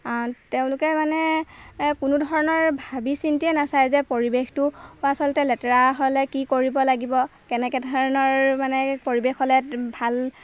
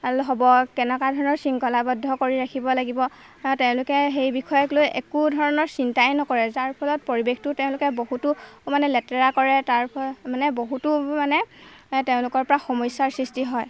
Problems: none marked